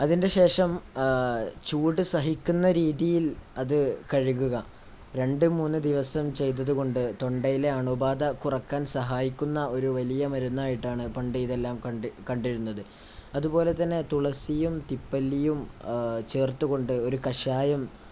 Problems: none marked